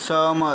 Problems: constant background noise